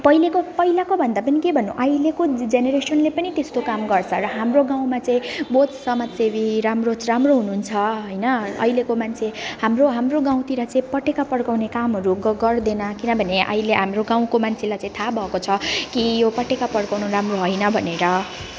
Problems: constant background noise, continuous background conversations